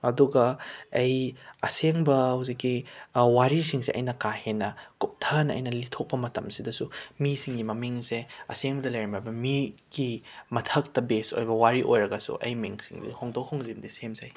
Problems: background sounds at intervals